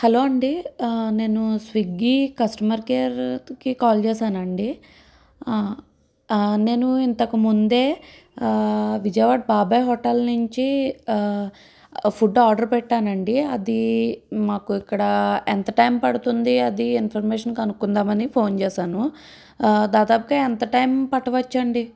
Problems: none marked